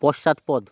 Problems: none marked